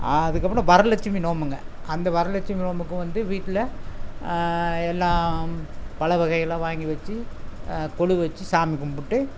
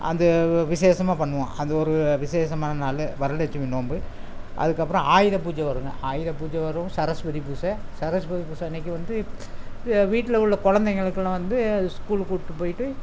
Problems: constant background noise